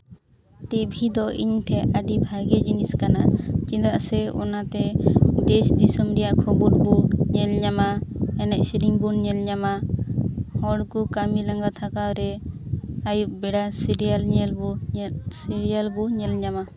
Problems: background sounds at intervals